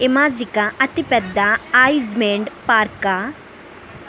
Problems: background conversations at intervals